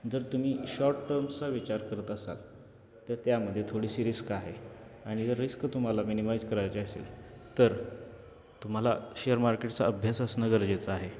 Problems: constant background noise